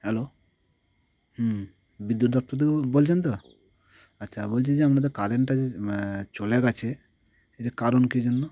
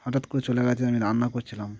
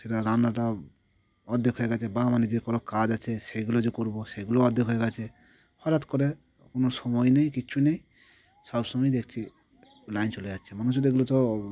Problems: none marked